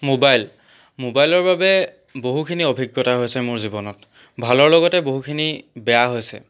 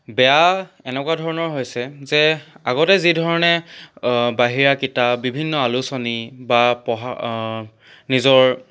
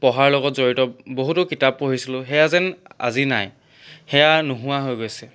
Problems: none marked